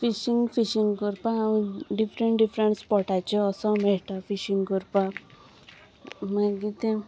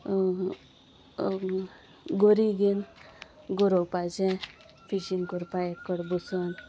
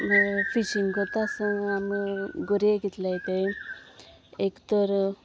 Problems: constant background noise